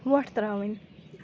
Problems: background sounds at intervals